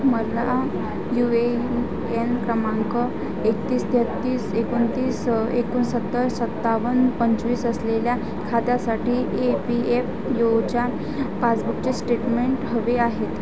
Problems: constant background noise, continuous background conversations